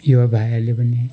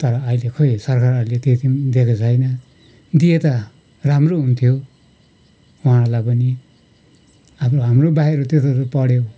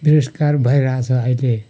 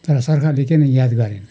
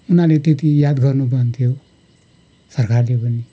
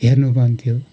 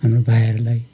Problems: none marked